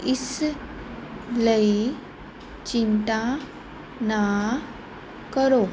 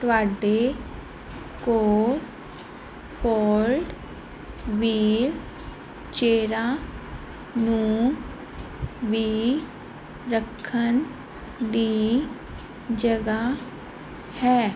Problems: background sounds at intervals